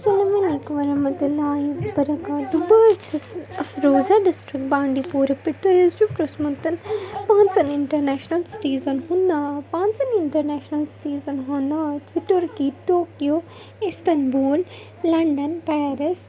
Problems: constant background noise